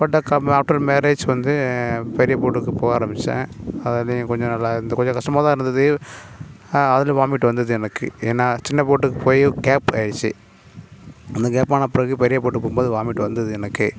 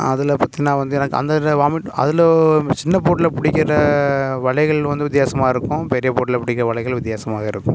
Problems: none marked